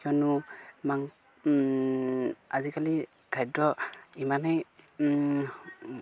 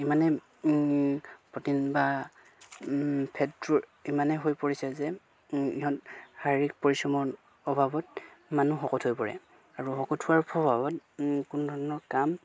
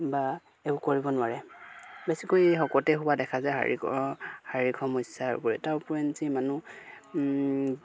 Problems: background sounds at intervals